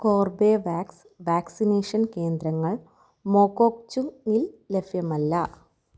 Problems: none marked